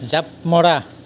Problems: constant background noise